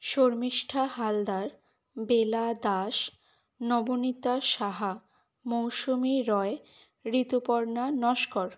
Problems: none marked